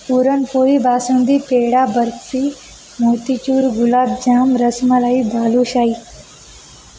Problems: constant background noise